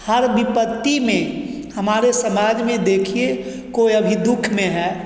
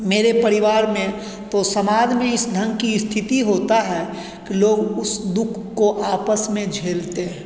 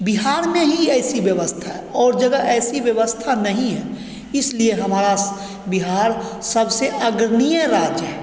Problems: constant background noise, echo